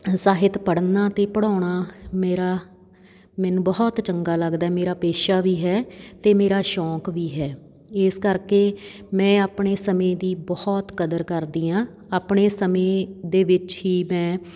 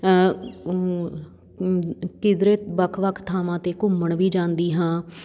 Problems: none marked